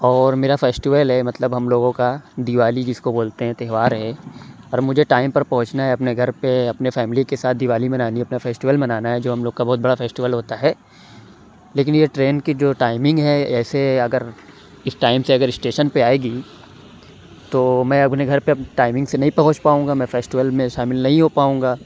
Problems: none marked